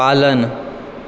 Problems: constant background noise